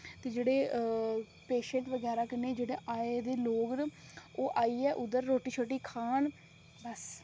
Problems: none marked